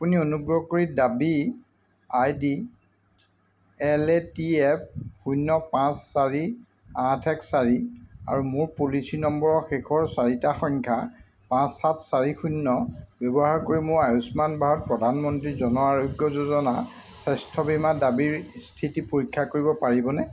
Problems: constant background noise